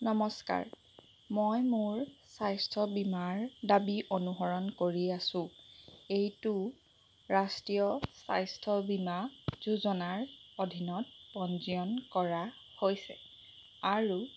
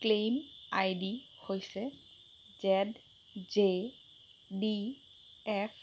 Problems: constant background noise